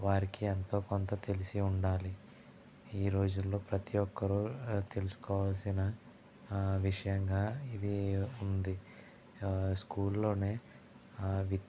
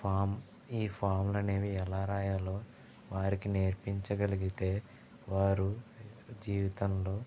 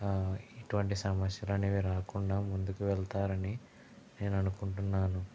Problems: low volume